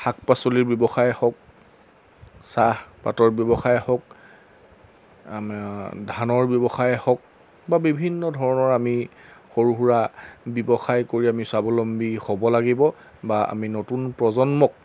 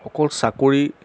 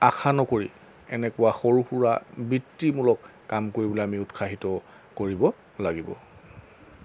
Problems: background sounds at intervals